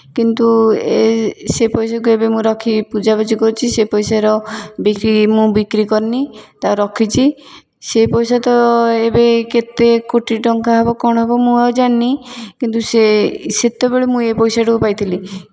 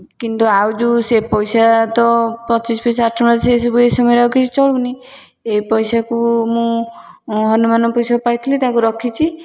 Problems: none marked